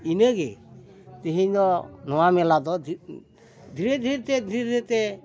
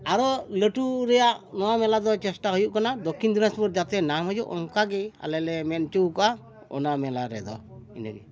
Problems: background conversations at intervals